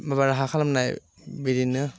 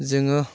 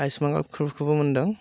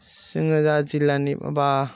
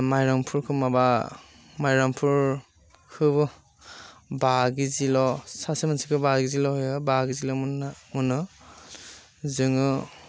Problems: constant background noise